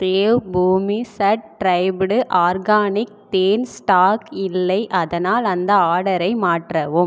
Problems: echo